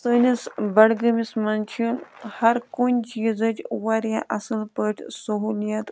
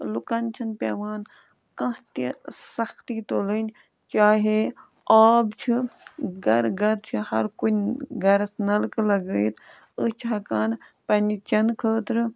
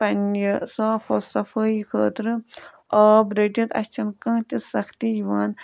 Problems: background sounds at intervals